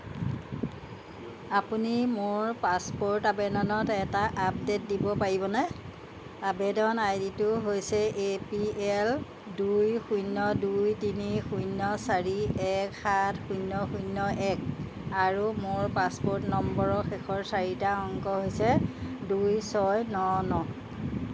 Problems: background sounds at intervals